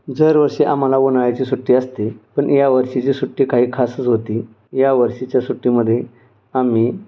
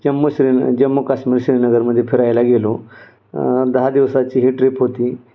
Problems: none marked